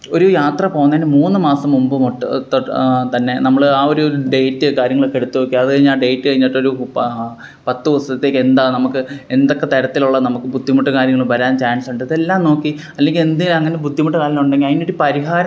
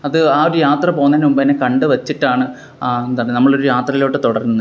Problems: background sounds at intervals